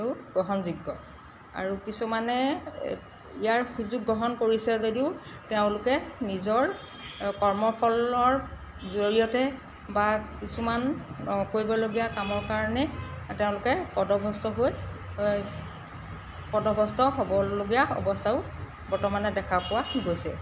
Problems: constant background noise